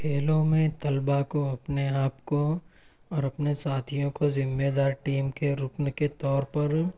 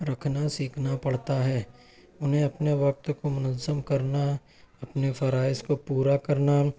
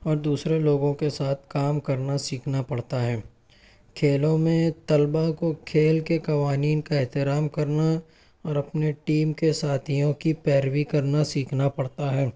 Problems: none marked